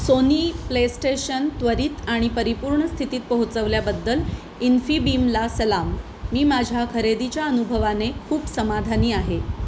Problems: constant background noise, continuous background conversations